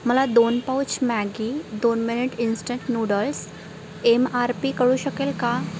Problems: none marked